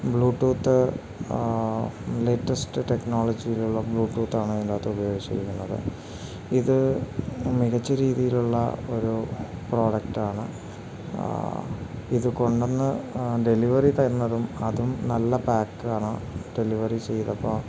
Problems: constant background noise